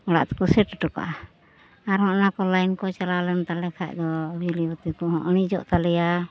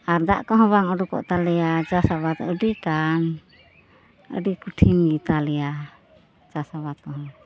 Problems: constant background noise